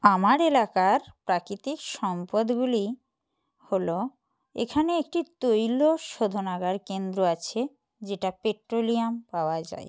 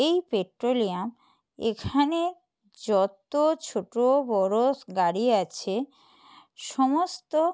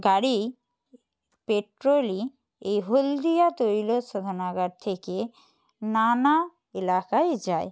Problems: none marked